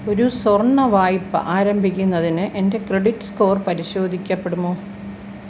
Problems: constant background noise